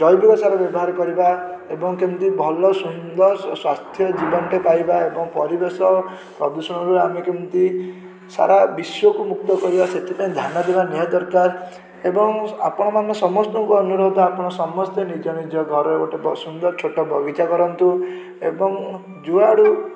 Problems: background sounds at intervals, continuous background conversations